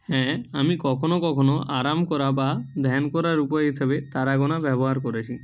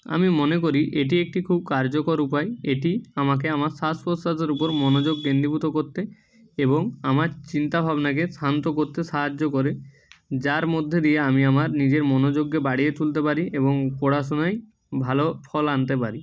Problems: none marked